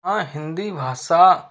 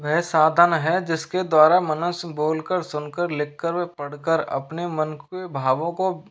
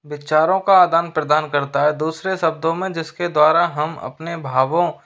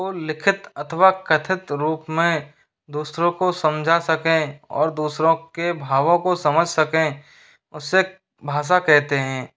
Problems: background sounds at intervals